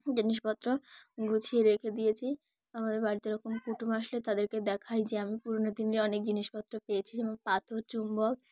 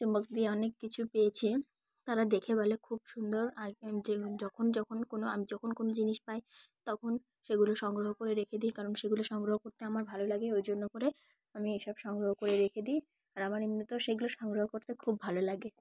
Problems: background sounds at intervals